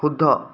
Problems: constant background noise